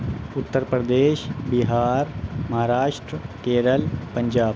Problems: none marked